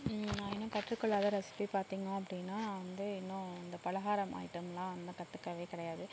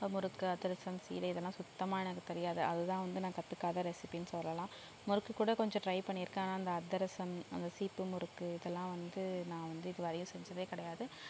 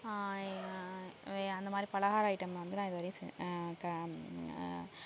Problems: low volume